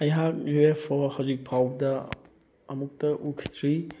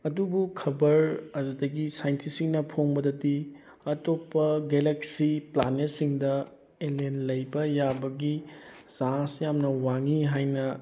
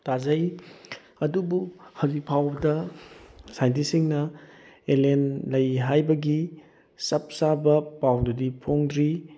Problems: background sounds at intervals